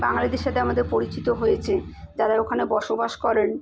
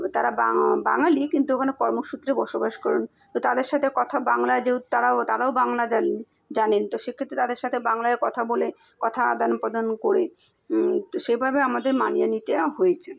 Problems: background sounds at intervals